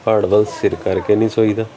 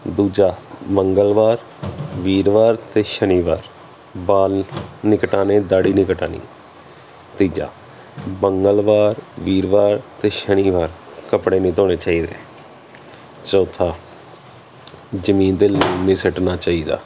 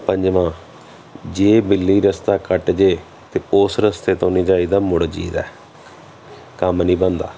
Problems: none marked